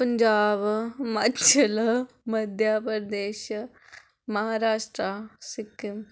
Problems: none marked